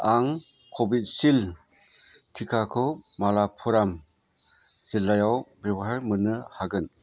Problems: constant background noise